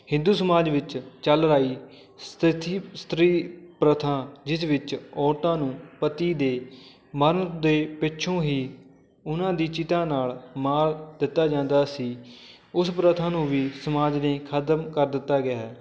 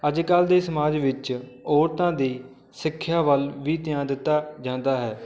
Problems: constant background noise, background conversations at intervals